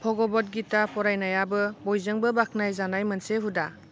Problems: none marked